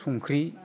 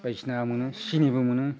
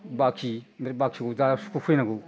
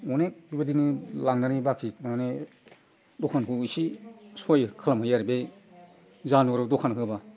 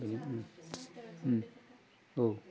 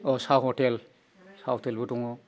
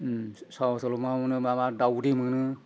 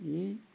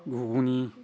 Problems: constant background noise